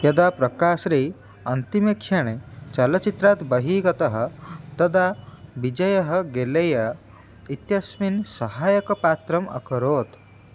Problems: none marked